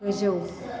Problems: none marked